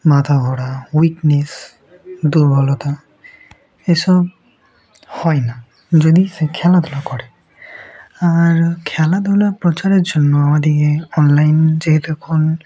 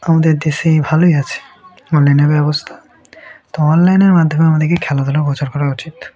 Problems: none marked